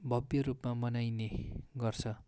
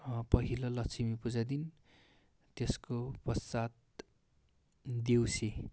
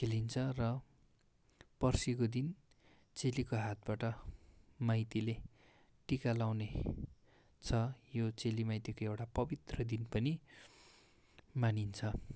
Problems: background sounds at intervals